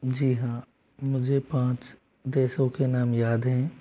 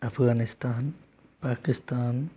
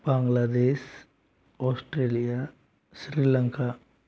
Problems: background sounds at intervals